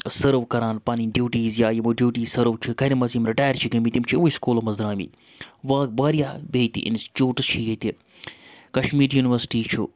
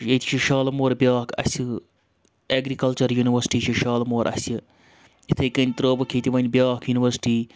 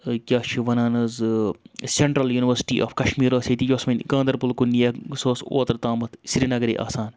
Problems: constant background noise